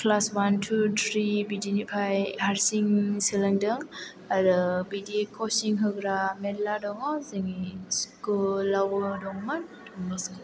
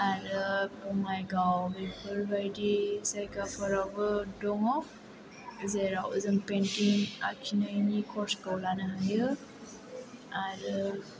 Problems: low volume